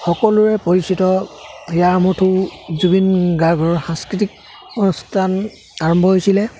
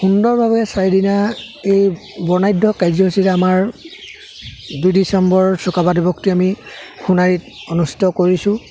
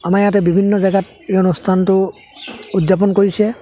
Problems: constant background noise, background conversations at intervals